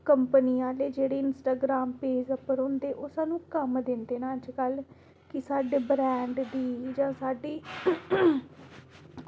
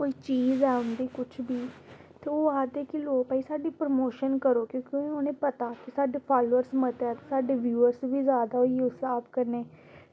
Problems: constant background noise